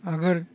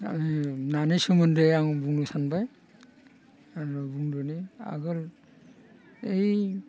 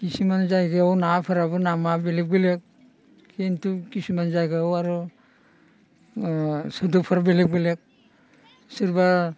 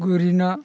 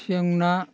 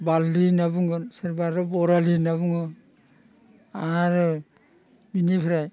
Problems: constant background noise